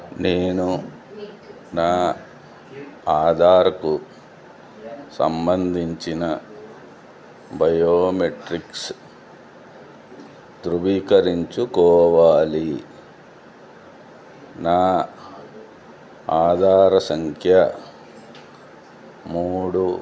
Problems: low volume